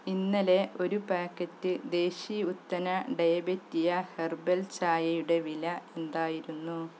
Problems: constant background noise